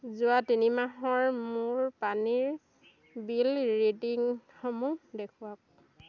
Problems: none marked